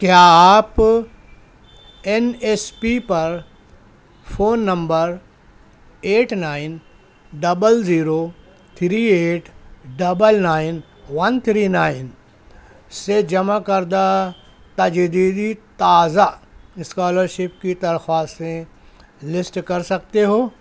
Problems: constant background noise